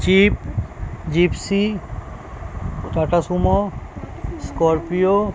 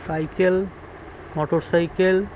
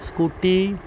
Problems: constant background noise, background conversations at intervals